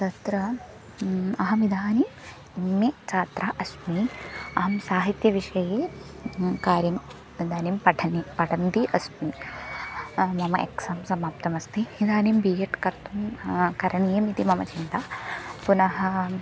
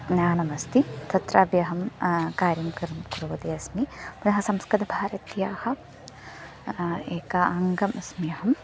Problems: constant background noise, background conversations at intervals